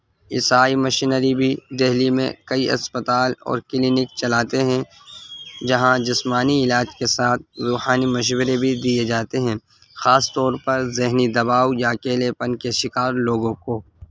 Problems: constant background noise